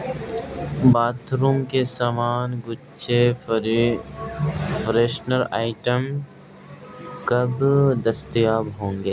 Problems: constant background noise